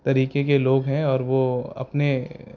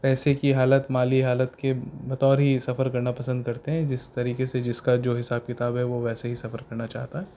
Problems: background sounds at intervals